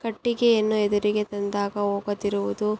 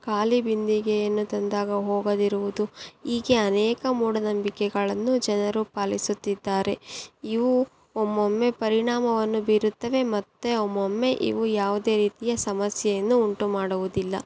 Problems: none marked